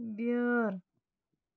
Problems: none marked